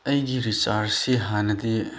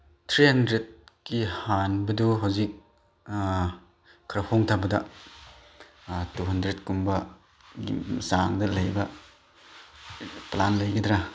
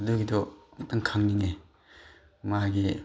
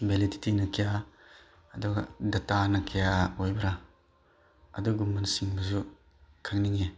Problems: background sounds at intervals